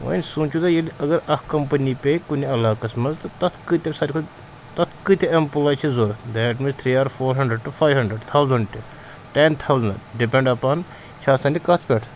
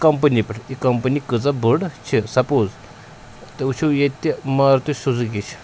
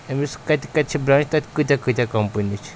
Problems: constant background noise